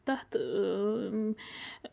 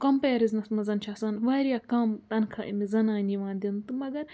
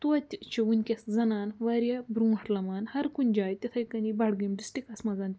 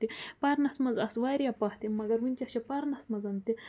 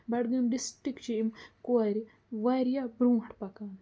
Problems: none marked